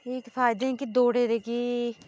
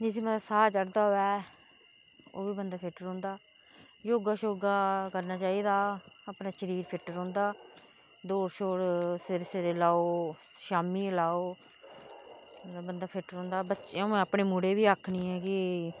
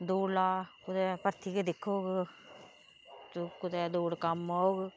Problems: none marked